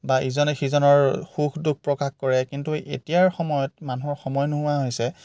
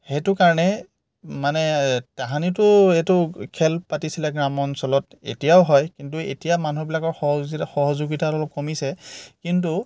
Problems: none marked